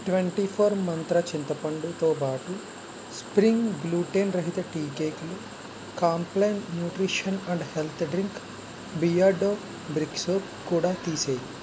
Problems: constant background noise